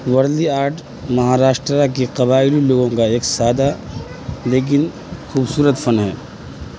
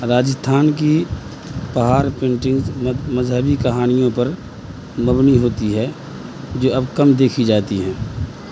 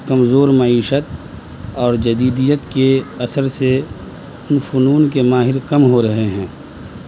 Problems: constant background noise